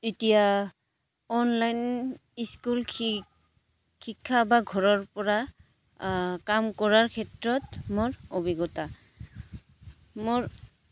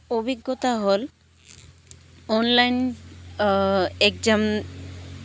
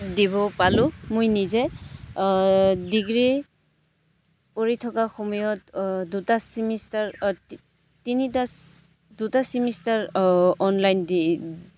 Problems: background sounds at intervals